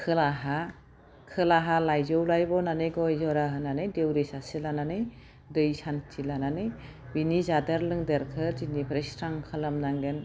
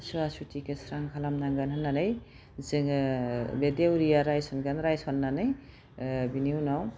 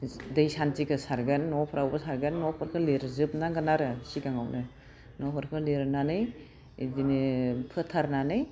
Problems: none marked